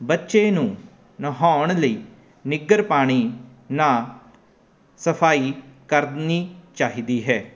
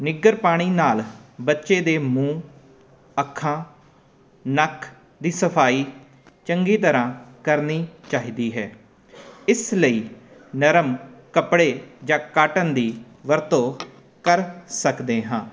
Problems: none marked